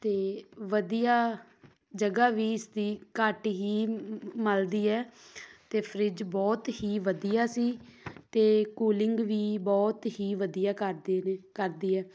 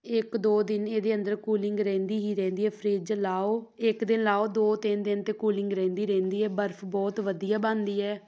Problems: background sounds at intervals